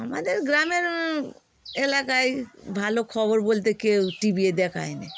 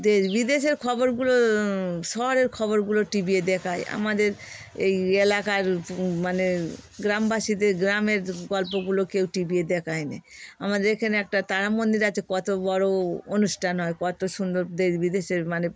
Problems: constant background noise